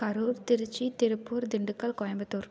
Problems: none marked